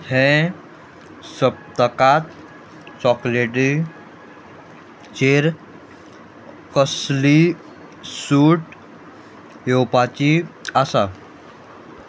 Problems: background sounds at intervals